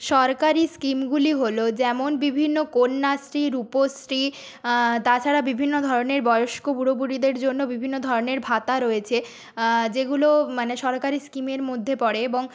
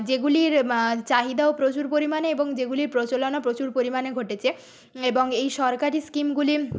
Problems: none marked